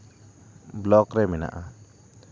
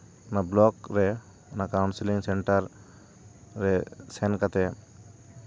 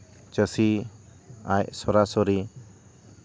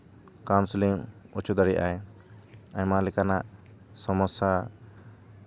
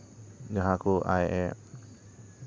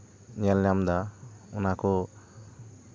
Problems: background sounds at intervals